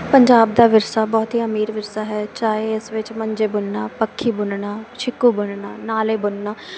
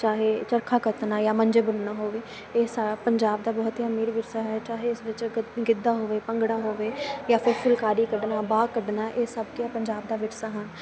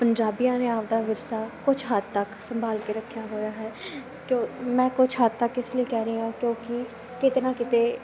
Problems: none marked